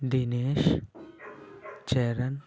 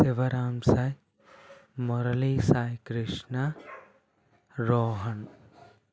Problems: none marked